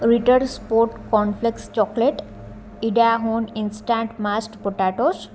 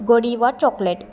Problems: constant background noise